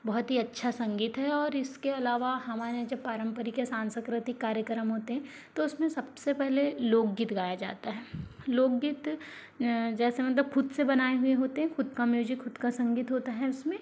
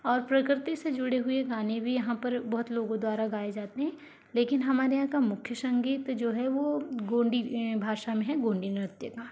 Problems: background sounds at intervals